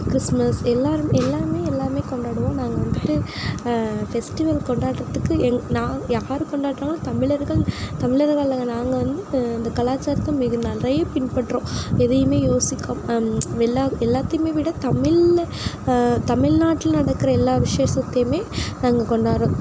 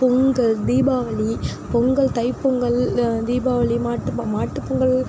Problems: none marked